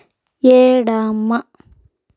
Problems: background sounds at intervals, low volume